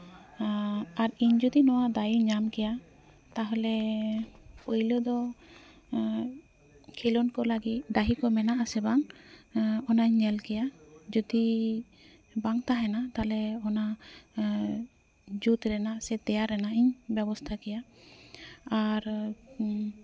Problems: constant background noise, background conversations at intervals